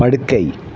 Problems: none marked